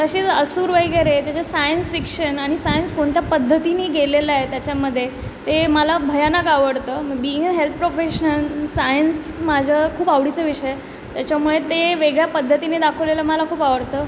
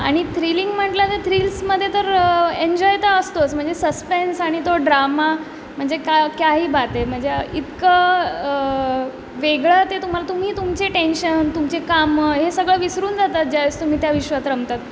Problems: none marked